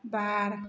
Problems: constant background noise